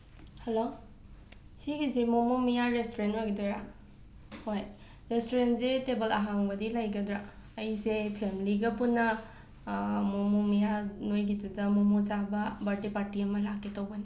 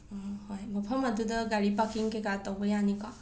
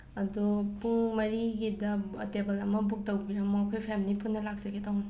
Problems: background sounds at intervals